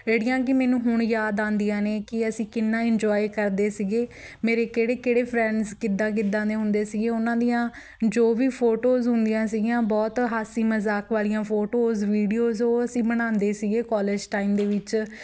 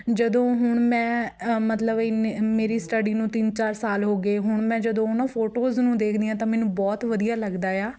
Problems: background conversations at intervals